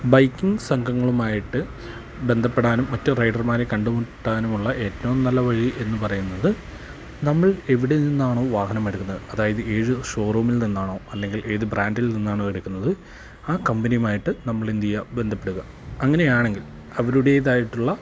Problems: constant background noise, low volume